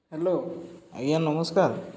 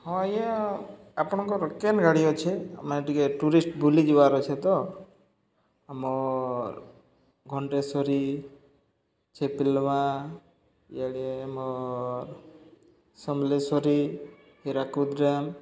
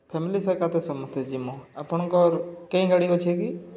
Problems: none marked